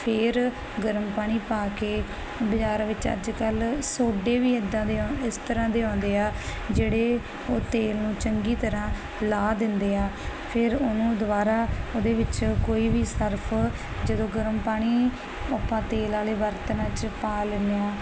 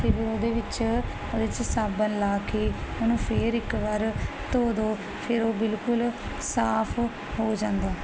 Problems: constant background noise